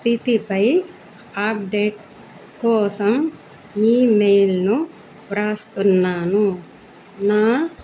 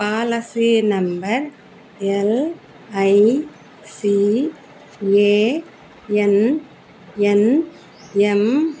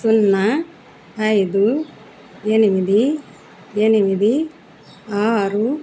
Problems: none marked